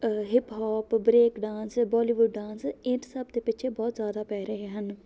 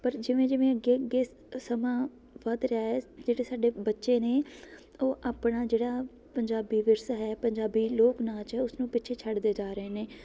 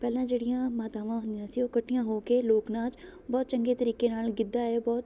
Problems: background sounds at intervals, background conversations at intervals